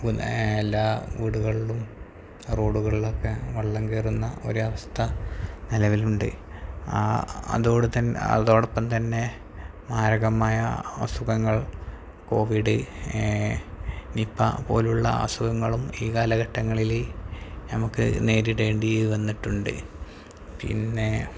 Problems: constant background noise, low volume